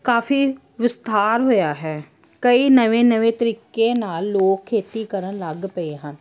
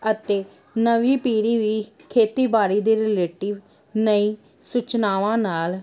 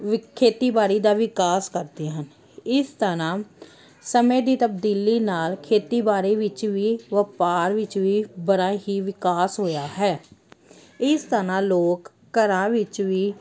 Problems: none marked